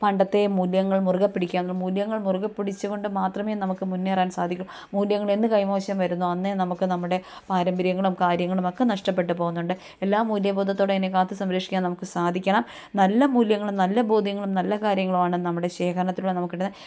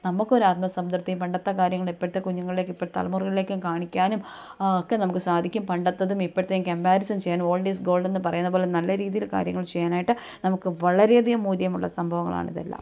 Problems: none marked